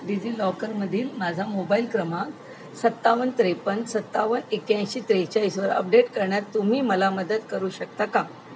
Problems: none marked